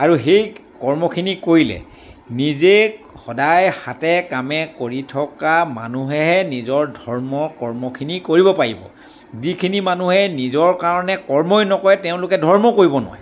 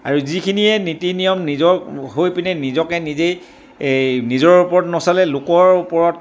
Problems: none marked